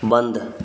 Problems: constant background noise